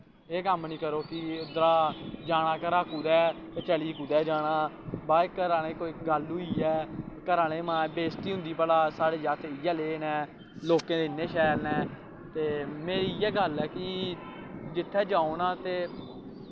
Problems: constant background noise